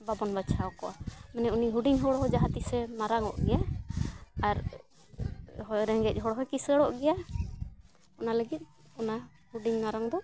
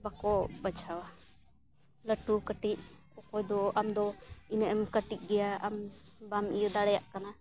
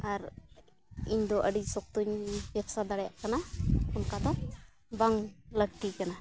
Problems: background sounds at intervals